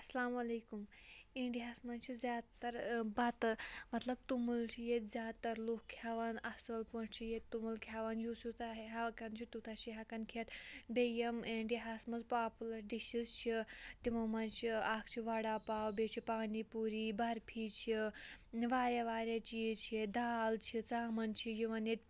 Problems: background sounds at intervals